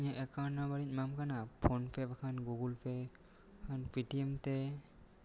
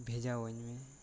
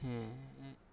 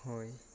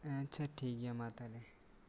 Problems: none marked